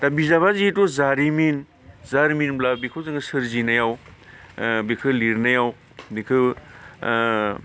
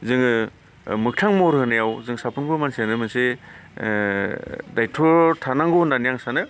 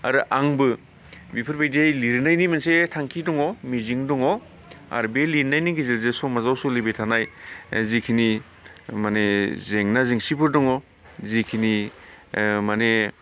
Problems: none marked